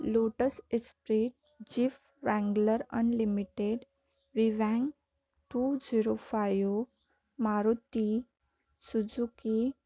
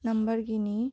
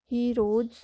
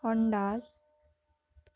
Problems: none marked